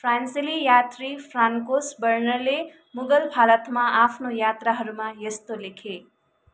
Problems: none marked